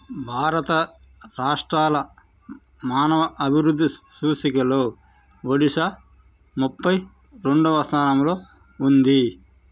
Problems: constant background noise